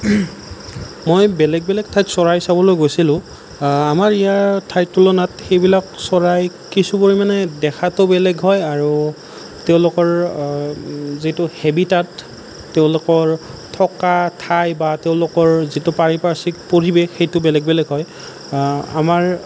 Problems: none marked